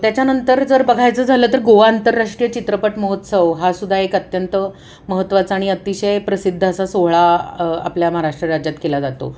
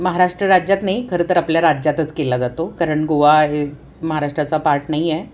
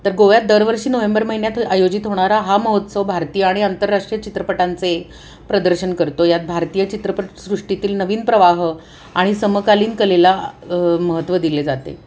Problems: constant background noise